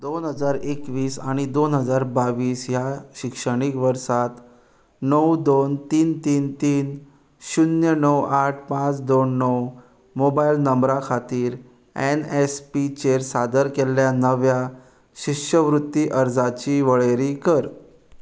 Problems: background sounds at intervals